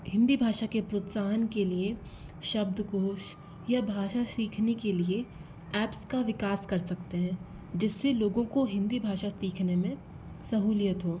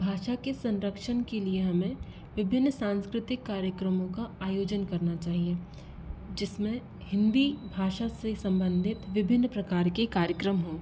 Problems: constant background noise